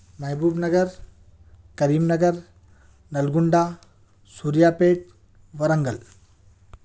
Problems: background sounds at intervals